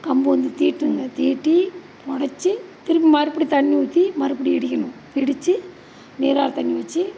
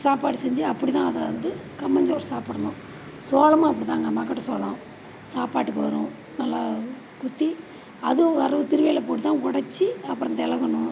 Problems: constant background noise